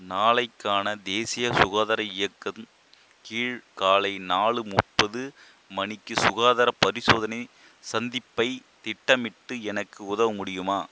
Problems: constant background noise